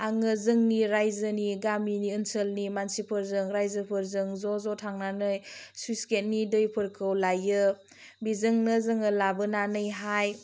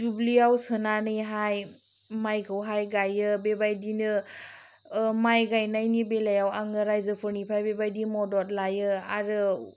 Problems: low volume